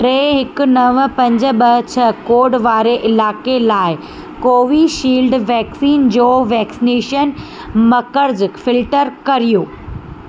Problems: constant background noise